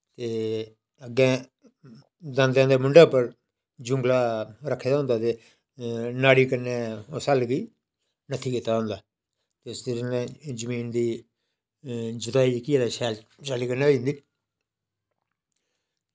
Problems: none marked